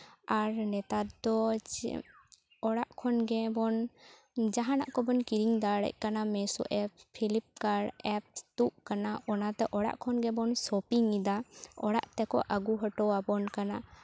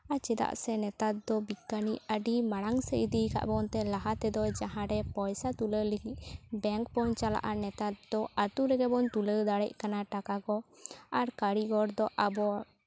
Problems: none marked